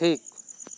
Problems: constant background noise